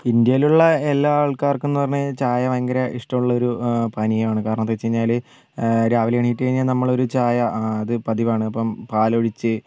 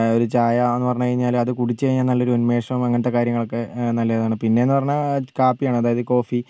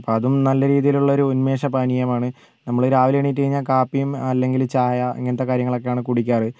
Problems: none marked